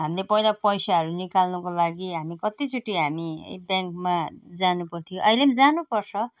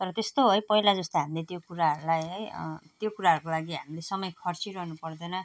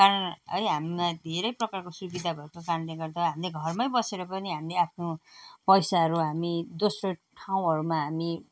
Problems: none marked